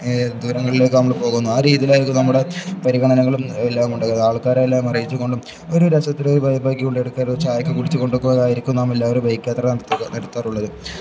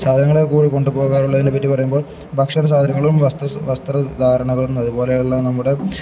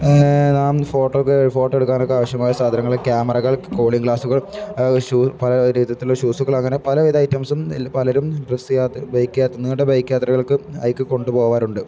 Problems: background sounds at intervals